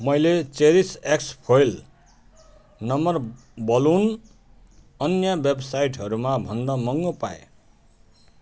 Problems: background conversations at intervals